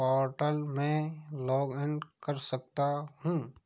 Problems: background sounds at intervals